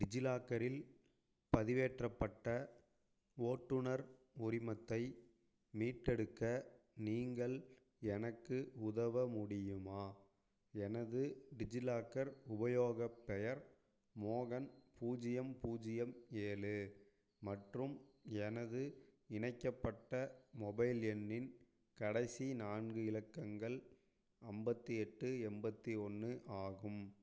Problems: low volume